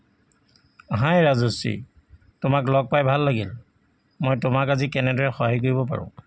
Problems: constant background noise